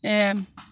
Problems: none marked